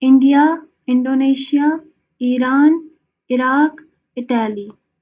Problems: none marked